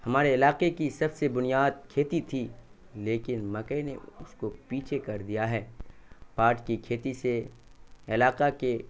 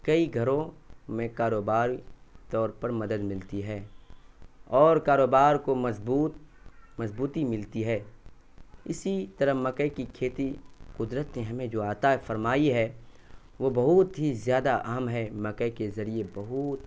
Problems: constant background noise